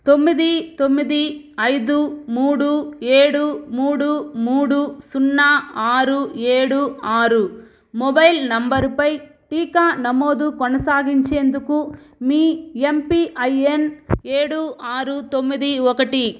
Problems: background sounds at intervals